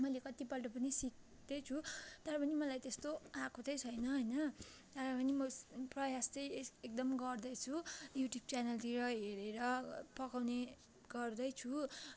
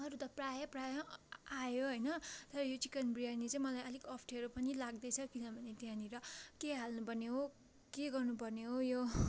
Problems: constant background noise, continuous background conversations